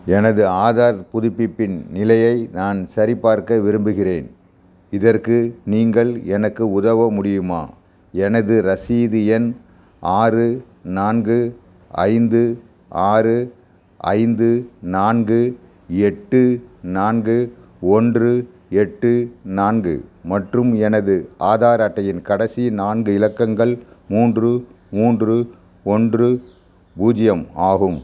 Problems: background sounds at intervals